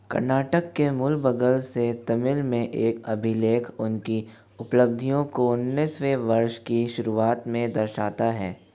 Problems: constant background noise